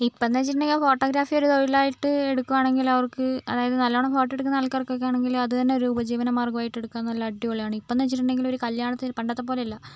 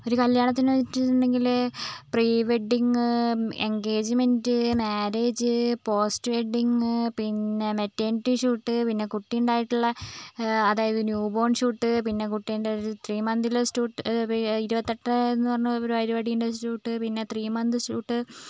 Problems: none marked